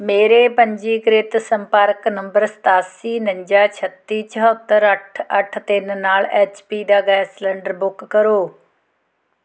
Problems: none marked